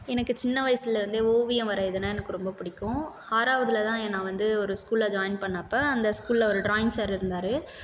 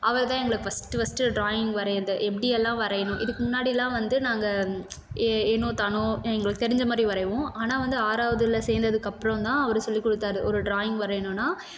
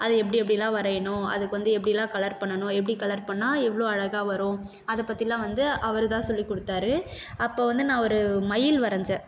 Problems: constant background noise